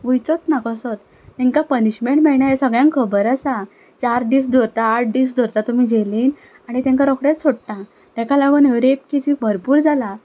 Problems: background sounds at intervals